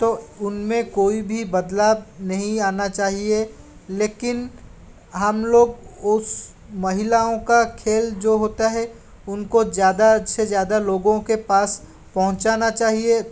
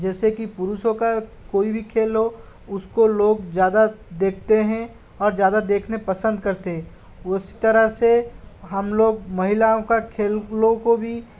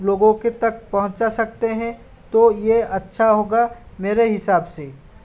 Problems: constant background noise, background conversations at intervals